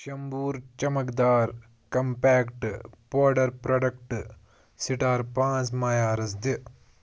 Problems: background sounds at intervals